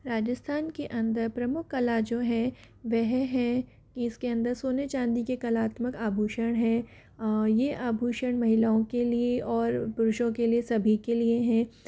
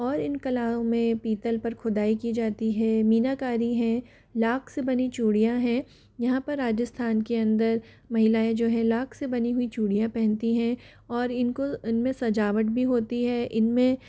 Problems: none marked